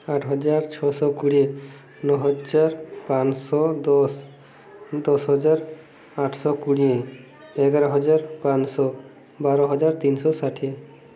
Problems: none marked